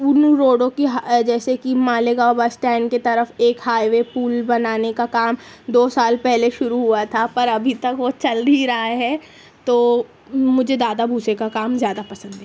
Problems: constant background noise, background conversations at intervals